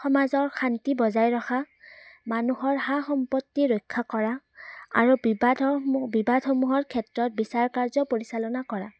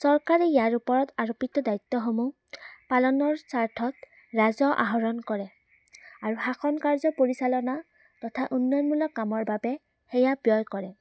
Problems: none marked